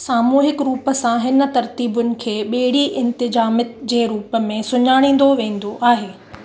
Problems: constant background noise